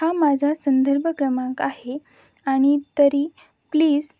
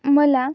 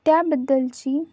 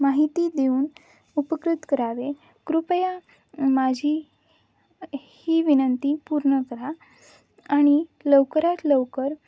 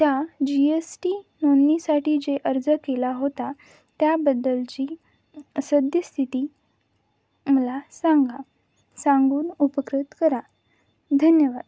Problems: none marked